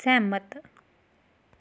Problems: none marked